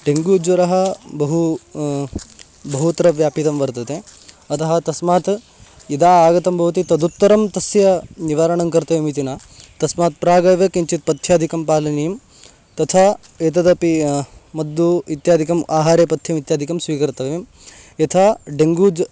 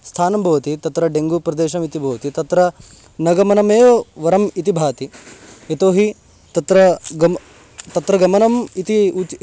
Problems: constant background noise